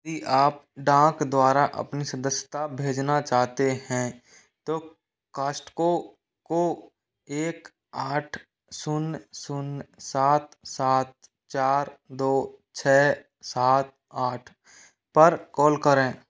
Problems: echo